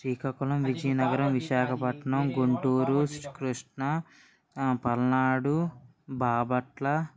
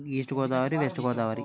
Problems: background conversations at intervals